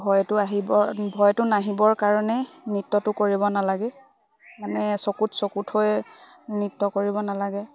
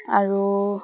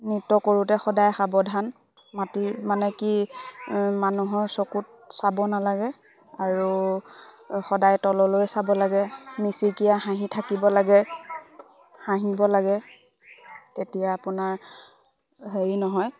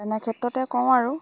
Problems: constant background noise, background conversations at intervals